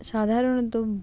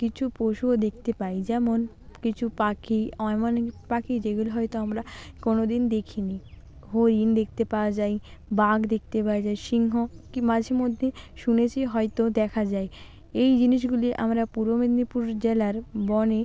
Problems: constant background noise